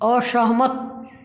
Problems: none marked